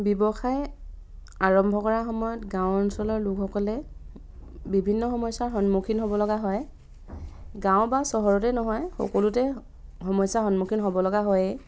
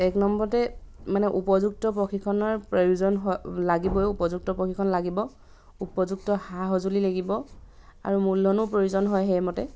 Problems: background sounds at intervals